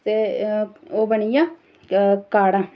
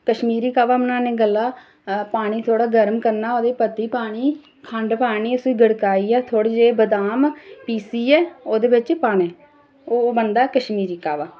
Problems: none marked